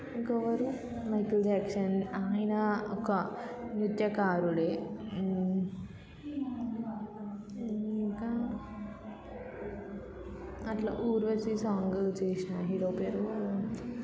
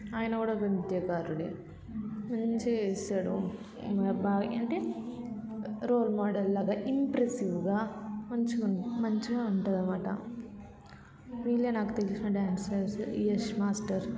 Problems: none marked